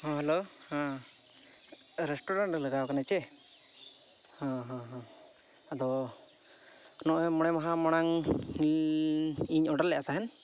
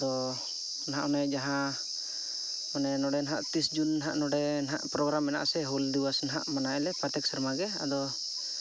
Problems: none marked